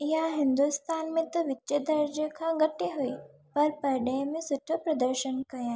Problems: constant background noise